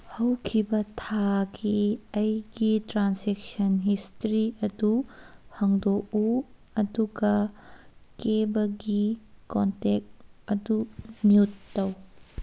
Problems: background sounds at intervals